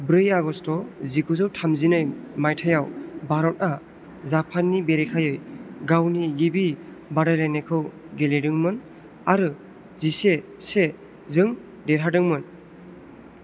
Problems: constant background noise